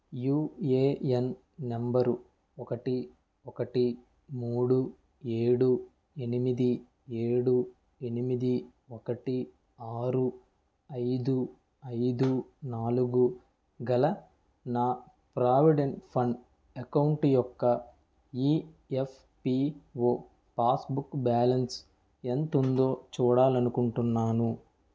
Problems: background sounds at intervals